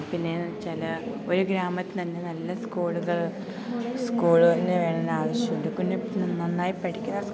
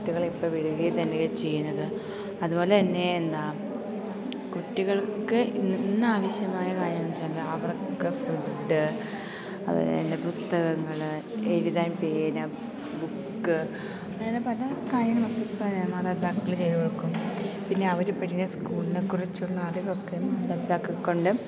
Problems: constant background noise, low volume